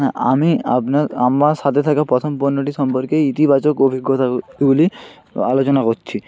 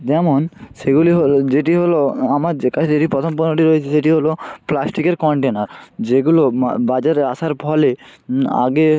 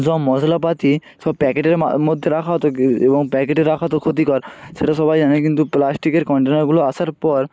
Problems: constant background noise, continuous background conversations